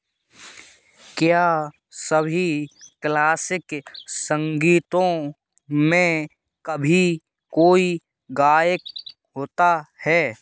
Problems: background sounds at intervals